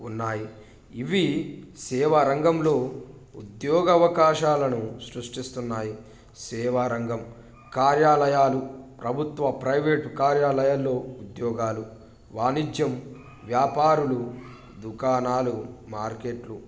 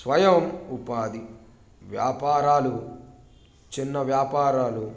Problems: background sounds at intervals